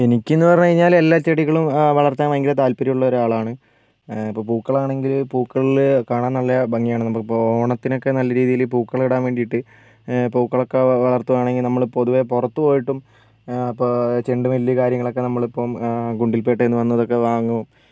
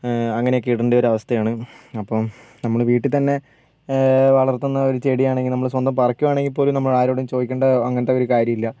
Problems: none marked